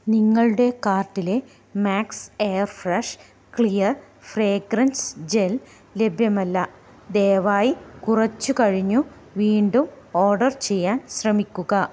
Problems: none marked